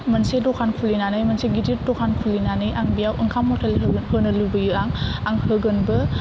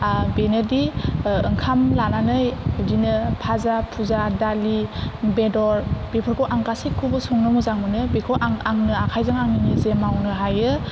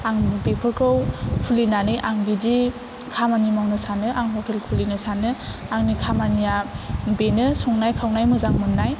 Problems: none marked